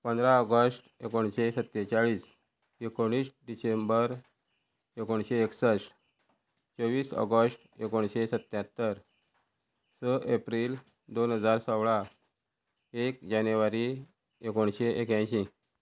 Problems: constant background noise